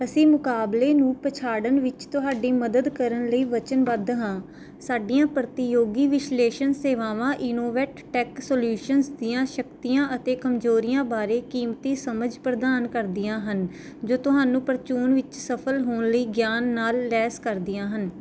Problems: none marked